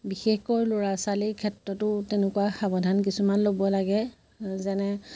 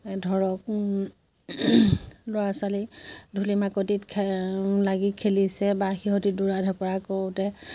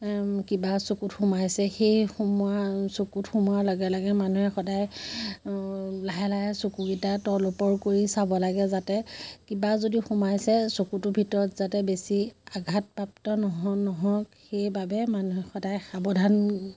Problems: constant background noise